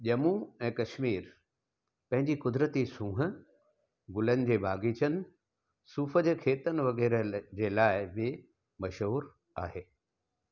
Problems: none marked